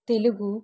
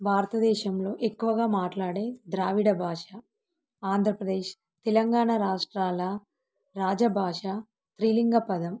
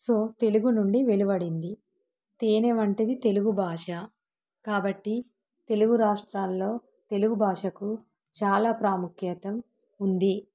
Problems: none marked